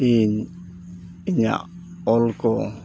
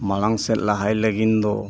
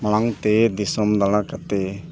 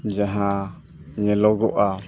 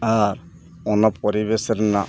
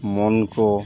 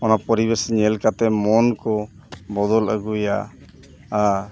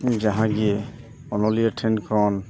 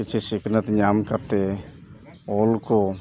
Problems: constant background noise, background conversations at intervals